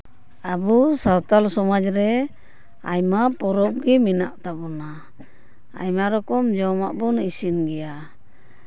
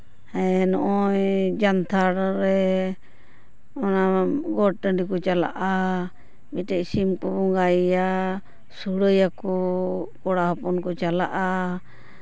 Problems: none marked